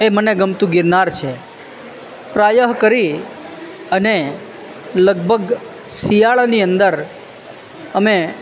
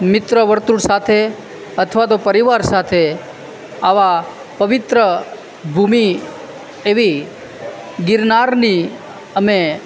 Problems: constant background noise